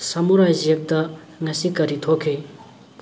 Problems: background sounds at intervals